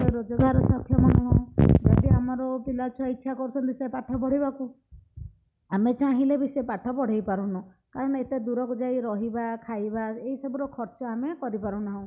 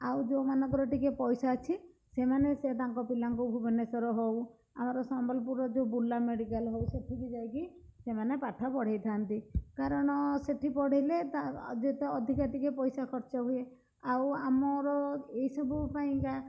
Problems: none marked